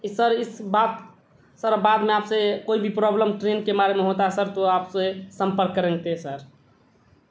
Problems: constant background noise